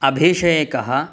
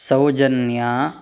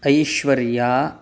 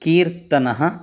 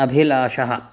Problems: none marked